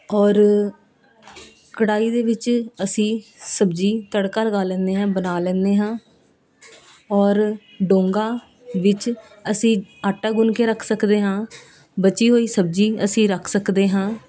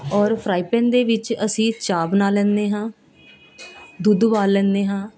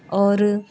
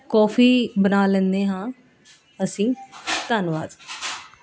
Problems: constant background noise, continuous background conversations